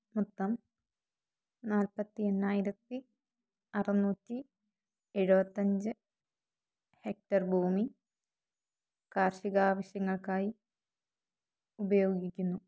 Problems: none marked